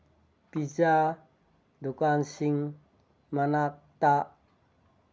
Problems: none marked